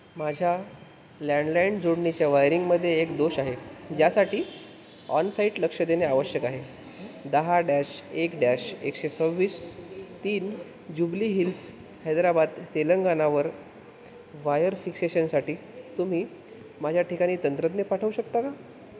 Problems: constant background noise